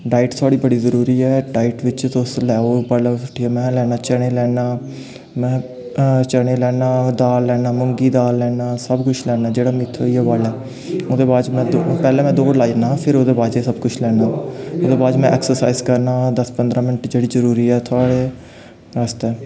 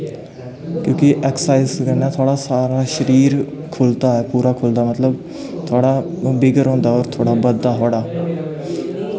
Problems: constant background noise, background conversations at intervals